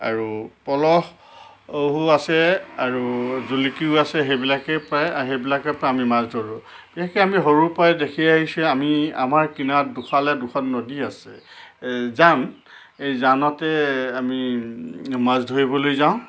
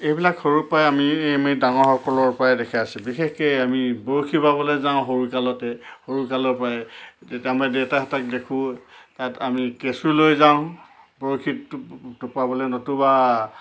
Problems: constant background noise